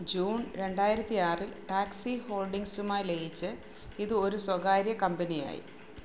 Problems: low volume